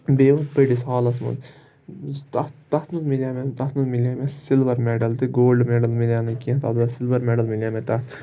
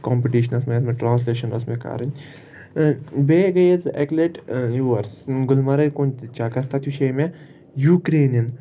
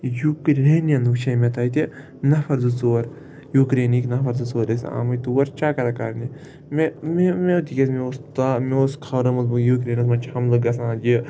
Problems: constant background noise